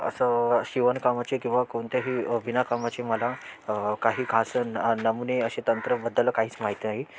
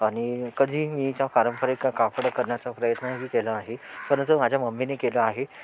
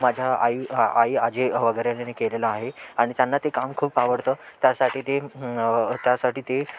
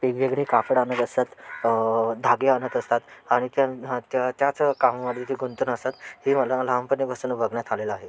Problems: constant background noise